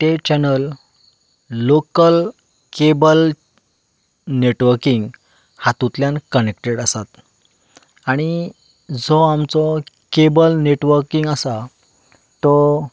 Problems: constant background noise